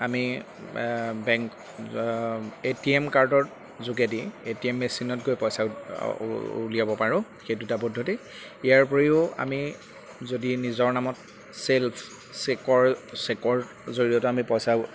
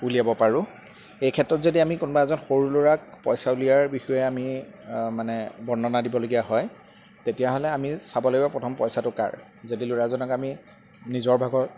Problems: background sounds at intervals